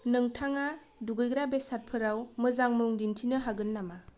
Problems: low volume